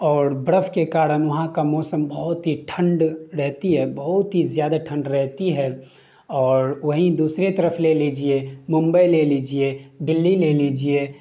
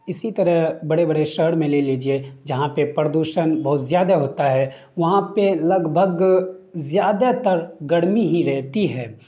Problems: none marked